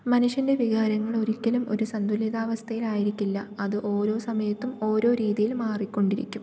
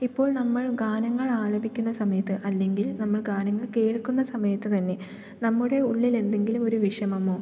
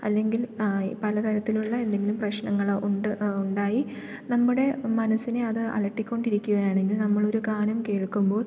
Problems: none marked